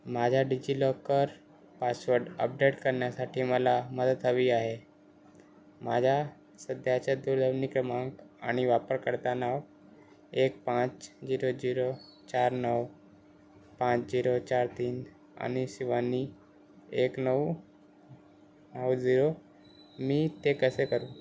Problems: constant background noise